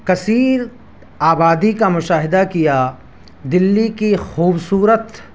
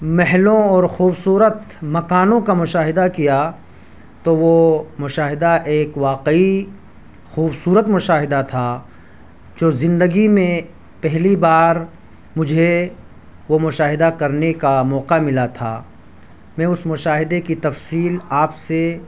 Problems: none marked